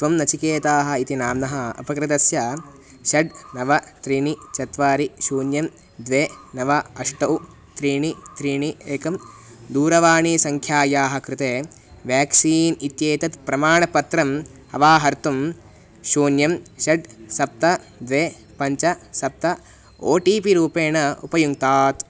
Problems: constant background noise